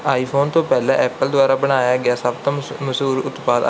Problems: background sounds at intervals